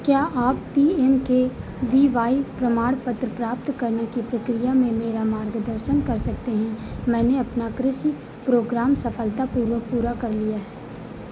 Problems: constant background noise